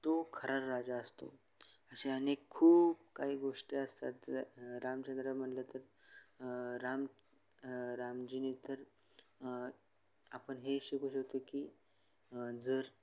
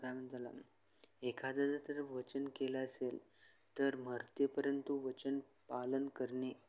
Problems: none marked